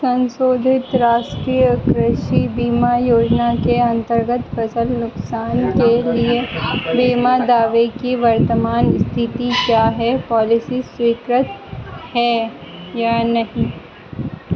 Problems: constant background noise